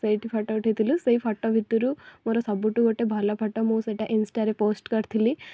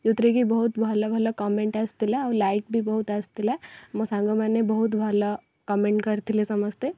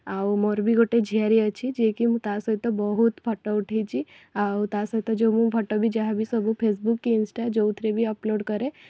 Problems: background sounds at intervals